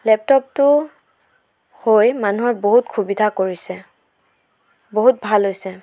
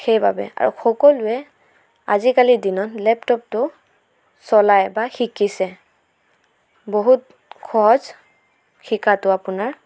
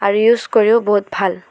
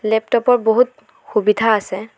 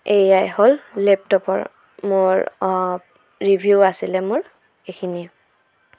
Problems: none marked